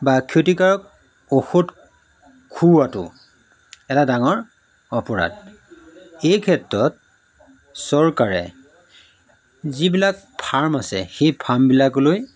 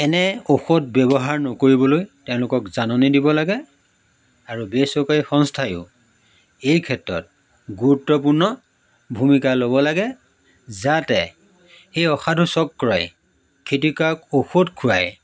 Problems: none marked